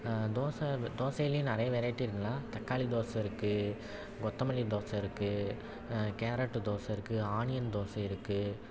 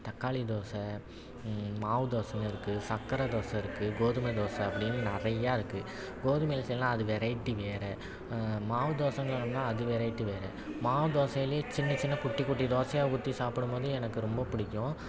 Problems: none marked